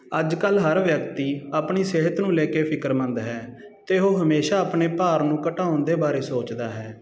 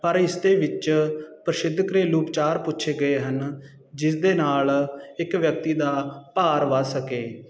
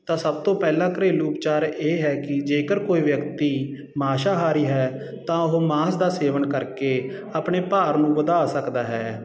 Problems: constant background noise